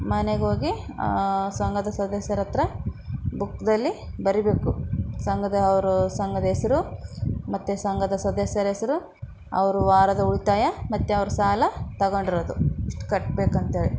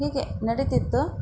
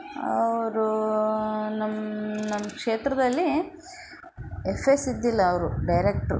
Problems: none marked